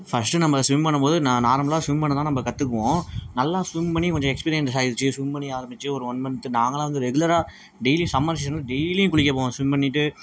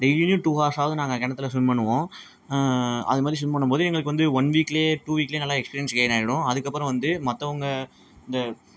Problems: background sounds at intervals